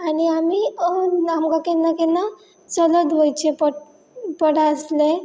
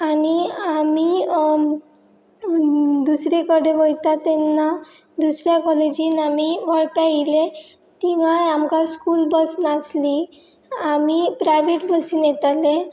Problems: none marked